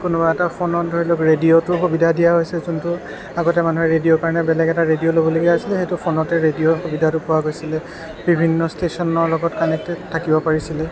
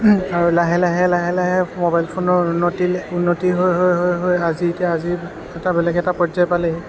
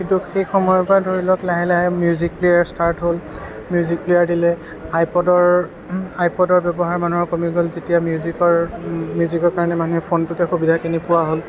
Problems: constant background noise